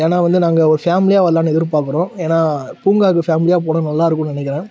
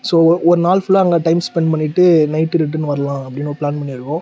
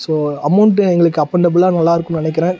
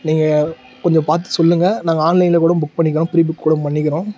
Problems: none marked